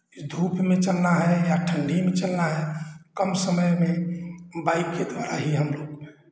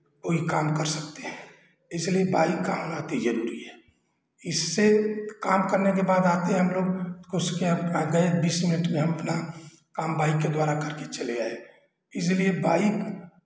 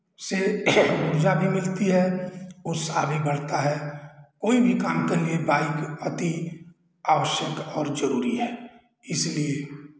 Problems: constant background noise, echo